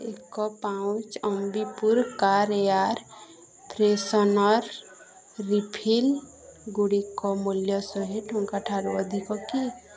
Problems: constant background noise, continuous background conversations